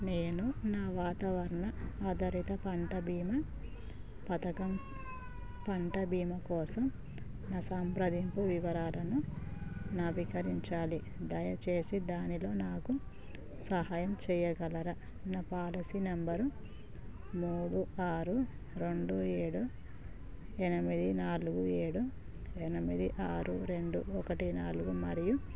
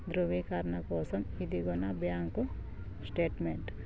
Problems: constant background noise, low volume